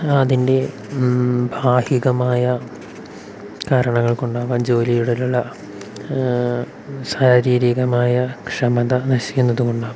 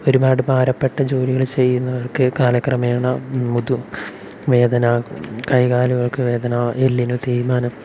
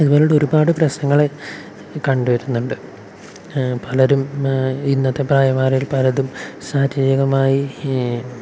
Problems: constant background noise